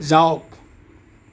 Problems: none marked